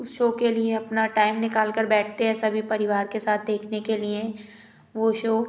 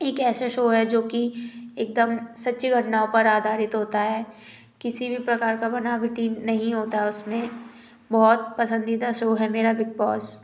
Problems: background sounds at intervals